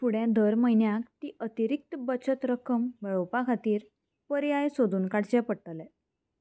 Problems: constant background noise